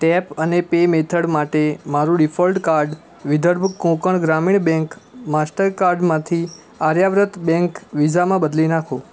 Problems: constant background noise